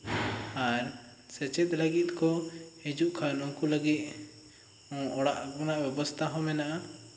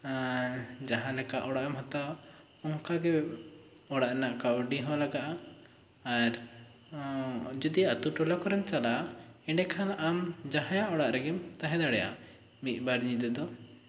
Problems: constant background noise